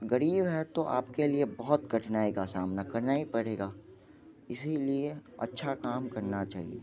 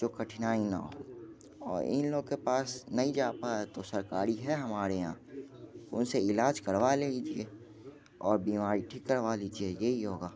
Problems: background sounds at intervals, background conversations at intervals